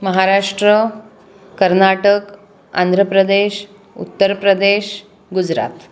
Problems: constant background noise, background conversations at intervals